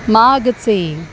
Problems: none marked